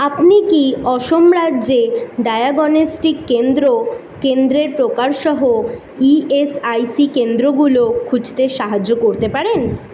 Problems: background sounds at intervals